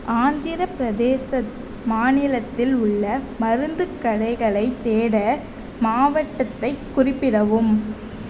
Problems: none marked